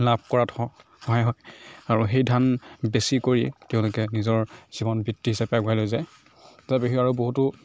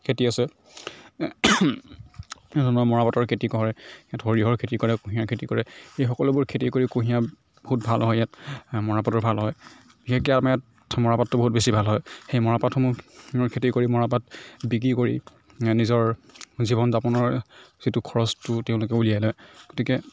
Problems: background sounds at intervals